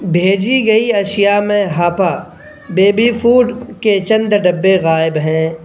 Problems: constant background noise